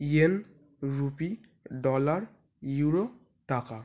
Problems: none marked